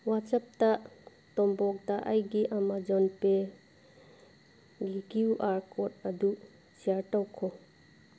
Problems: background sounds at intervals